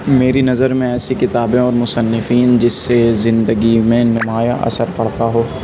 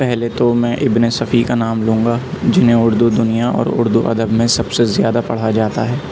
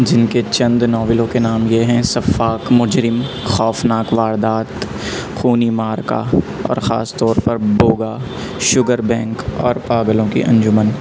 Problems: constant background noise